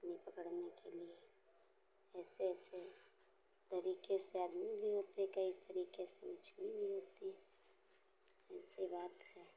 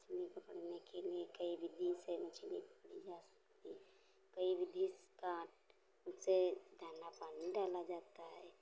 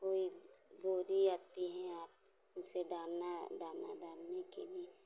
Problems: constant background noise